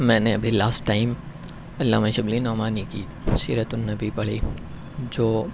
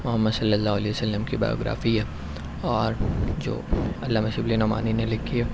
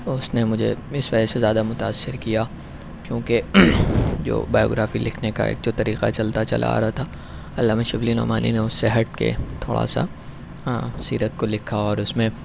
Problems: none marked